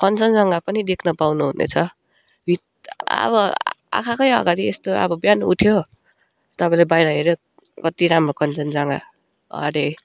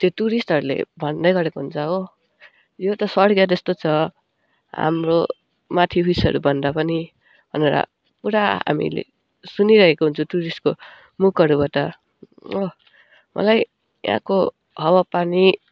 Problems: background sounds at intervals